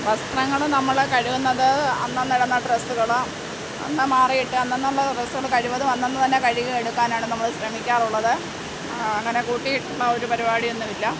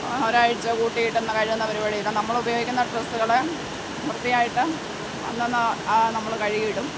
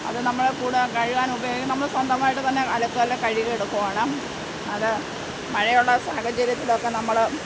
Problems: none marked